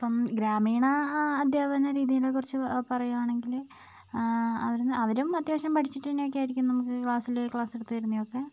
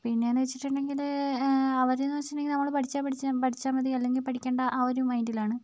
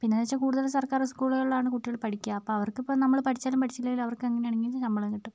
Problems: low volume